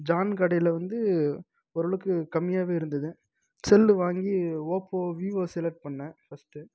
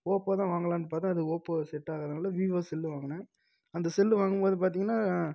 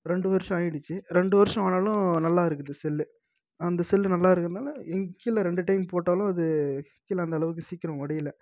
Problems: none marked